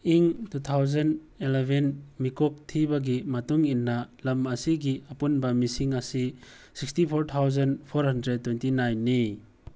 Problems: background sounds at intervals